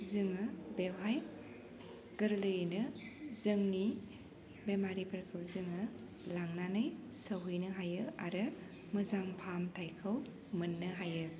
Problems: low volume